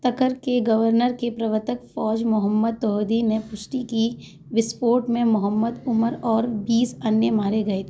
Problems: none marked